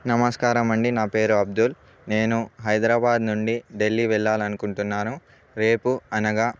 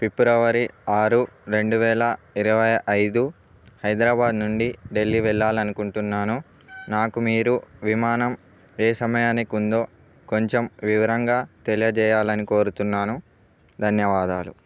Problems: none marked